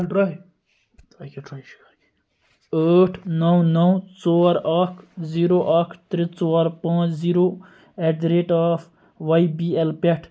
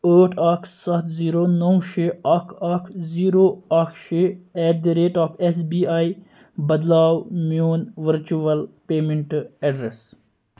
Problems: background conversations at intervals